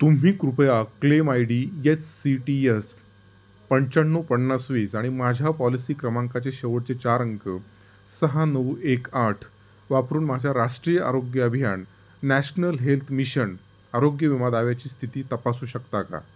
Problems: constant background noise